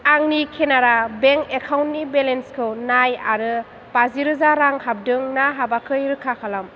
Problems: none marked